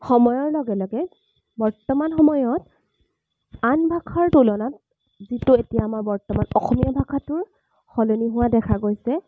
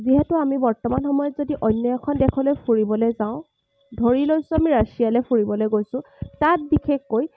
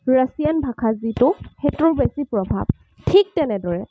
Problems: none marked